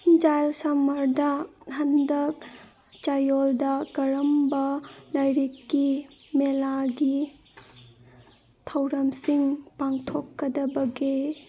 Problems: background sounds at intervals